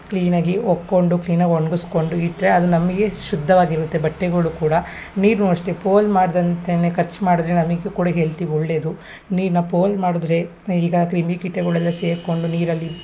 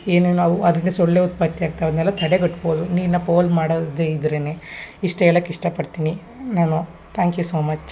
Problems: none marked